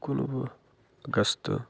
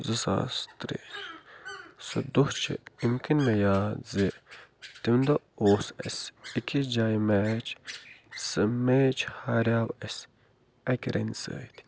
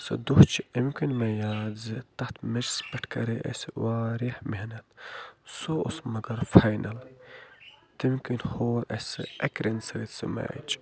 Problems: constant background noise